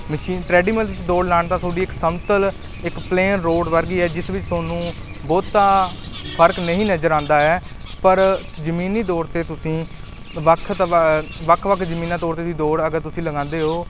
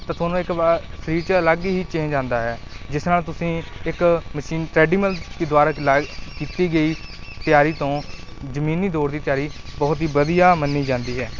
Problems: background sounds at intervals